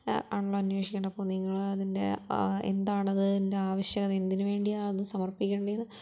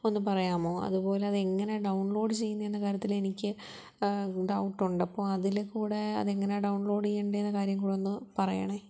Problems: low volume